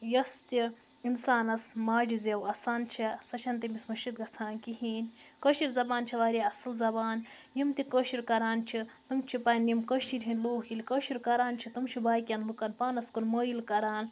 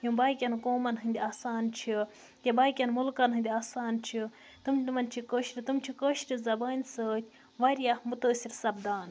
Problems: constant background noise